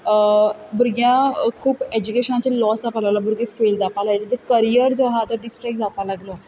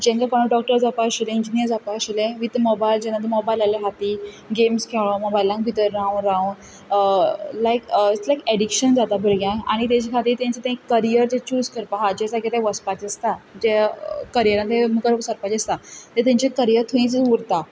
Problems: none marked